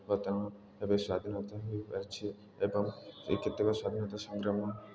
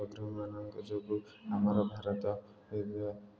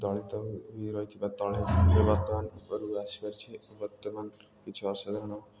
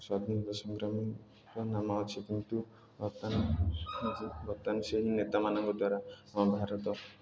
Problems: none marked